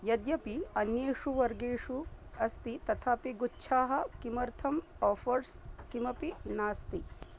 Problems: low volume